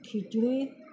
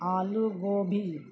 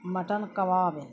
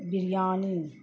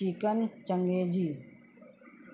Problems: constant background noise